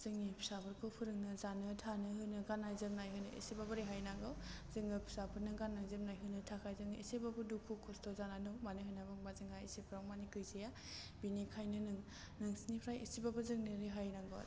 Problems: none marked